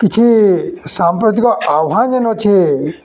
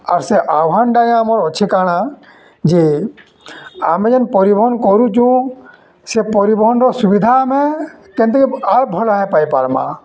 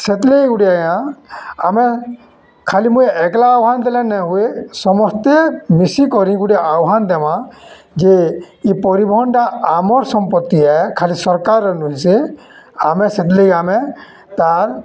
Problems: constant background noise, continuous background conversations